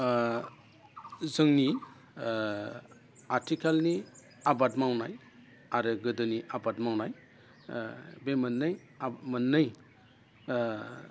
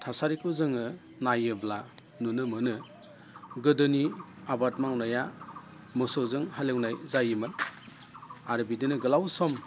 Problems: constant background noise